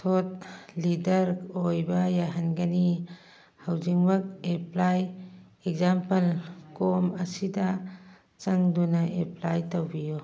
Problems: background conversations at intervals